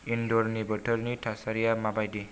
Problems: low volume